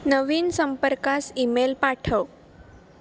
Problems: none marked